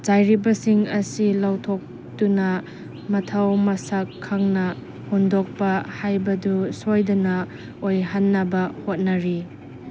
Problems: background sounds at intervals